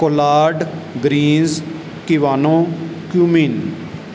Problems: background sounds at intervals